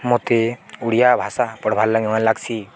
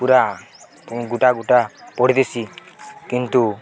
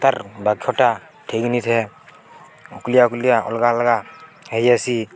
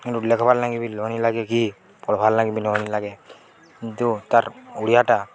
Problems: constant background noise, continuous background conversations